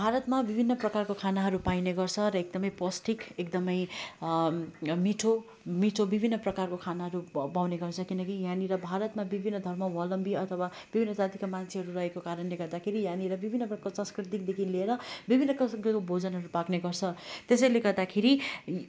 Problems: none marked